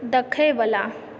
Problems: background conversations at intervals